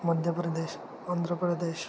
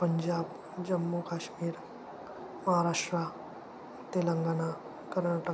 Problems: constant background noise